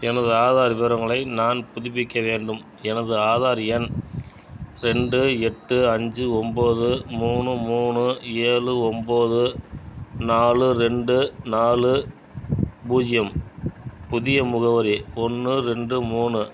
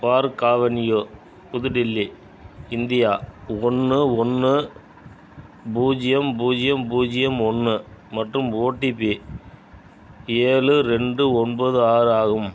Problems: background sounds at intervals